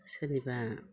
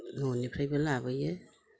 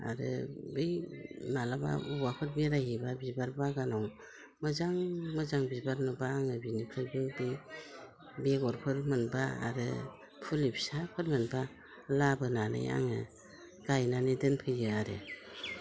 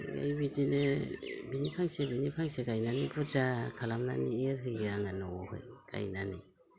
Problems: constant background noise